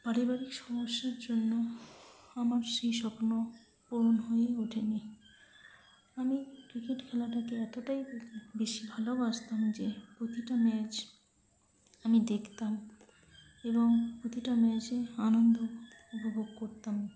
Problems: none marked